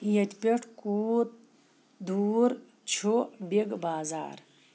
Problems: constant background noise